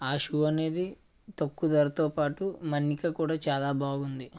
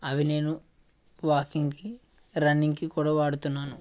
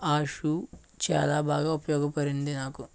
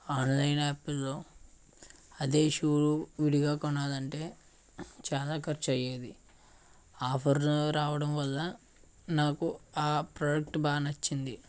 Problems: background sounds at intervals